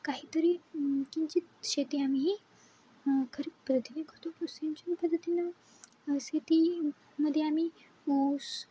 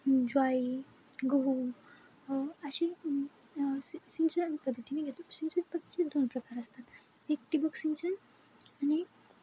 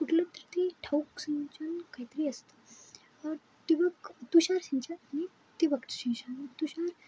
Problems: none marked